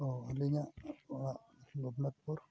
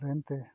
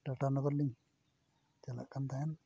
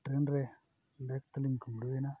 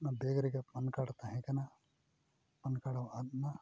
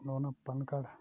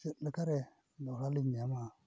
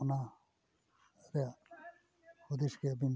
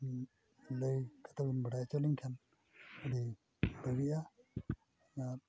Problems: constant background noise, background conversations at intervals